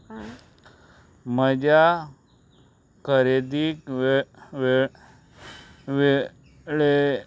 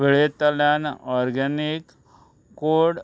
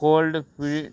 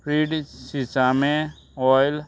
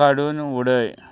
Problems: constant background noise